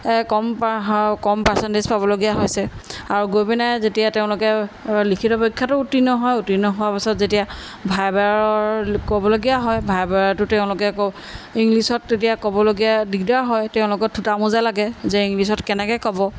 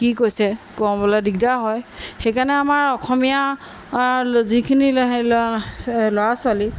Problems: none marked